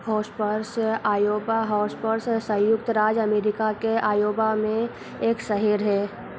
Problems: none marked